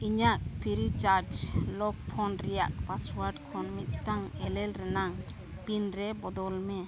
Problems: constant background noise